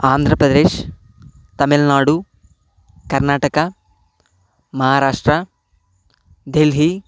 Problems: background sounds at intervals